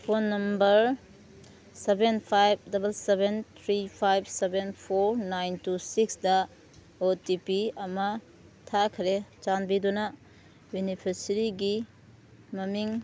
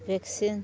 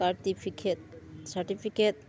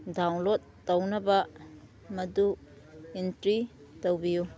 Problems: background sounds at intervals